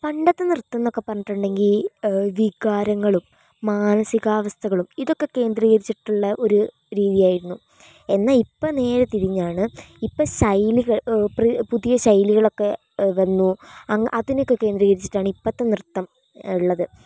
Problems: none marked